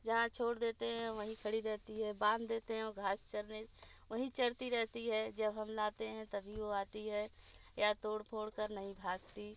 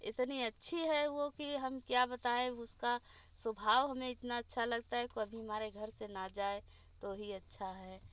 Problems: constant background noise, low volume